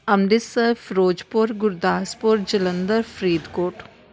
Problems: constant background noise